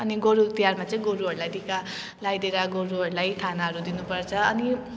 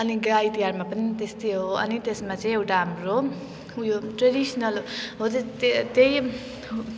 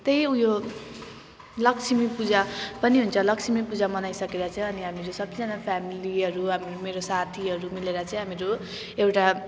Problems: none marked